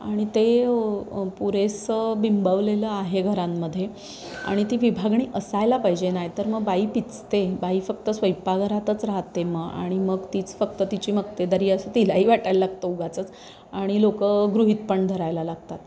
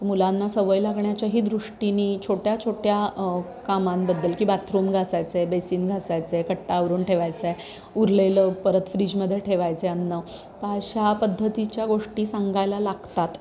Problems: constant background noise